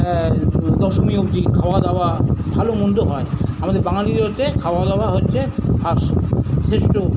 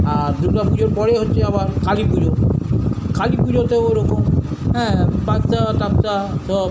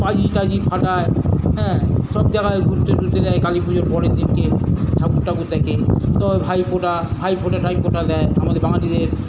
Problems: constant background noise, continuous background conversations